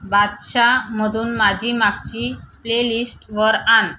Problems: background sounds at intervals